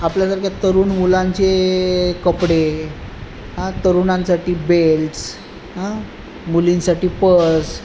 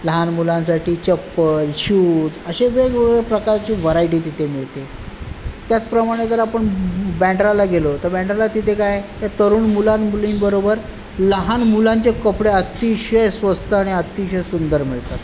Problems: none marked